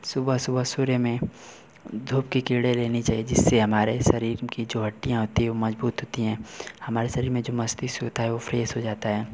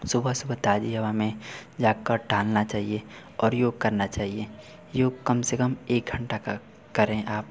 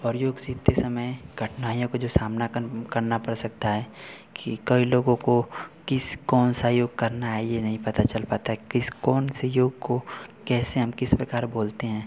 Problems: none marked